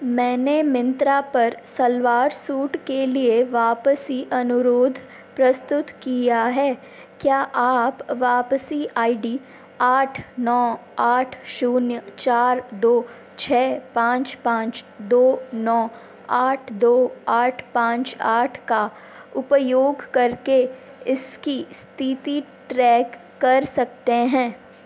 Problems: constant background noise